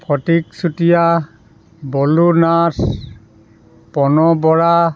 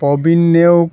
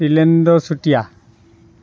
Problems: none marked